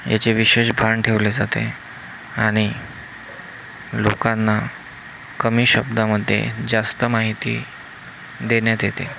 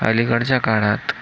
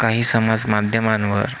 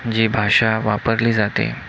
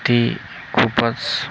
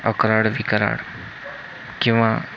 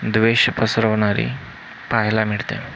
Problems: constant background noise